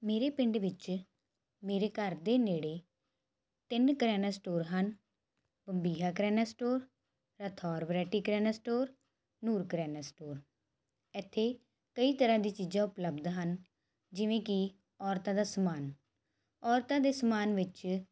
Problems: constant background noise